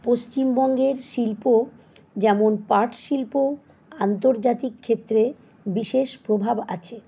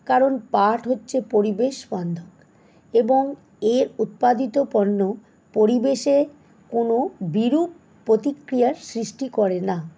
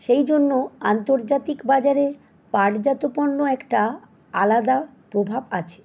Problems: none marked